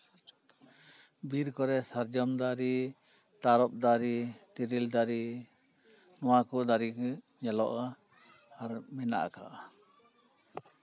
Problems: background sounds at intervals